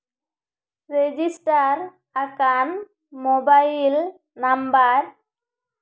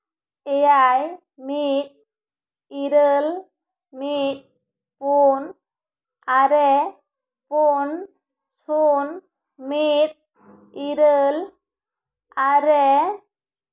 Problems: echo